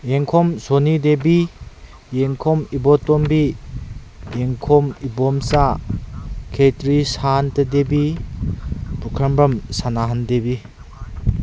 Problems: constant background noise